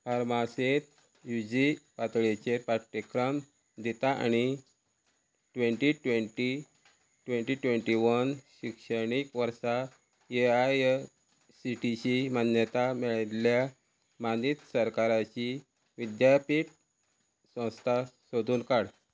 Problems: none marked